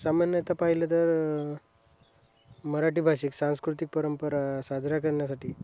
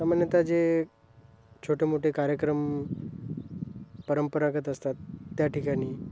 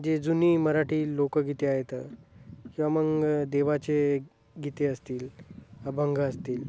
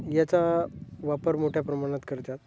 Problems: none marked